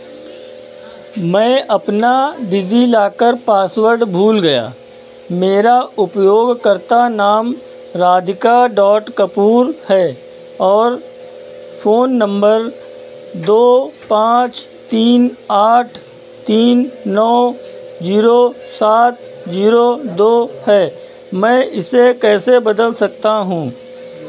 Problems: none marked